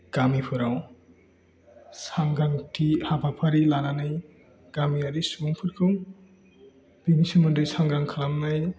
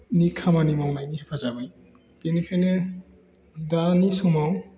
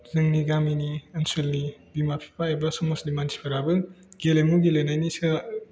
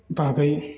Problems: low volume